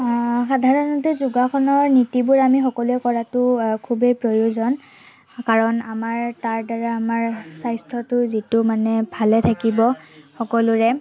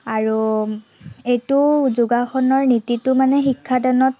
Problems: none marked